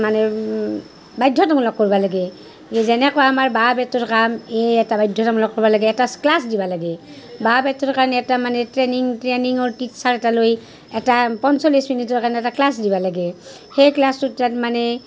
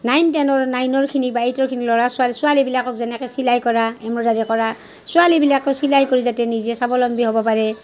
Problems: background sounds at intervals, background conversations at intervals